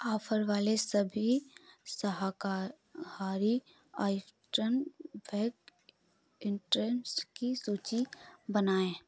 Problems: none marked